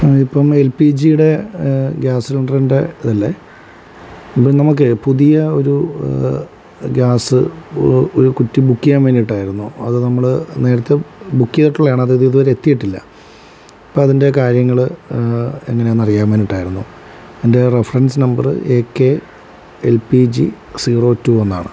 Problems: none marked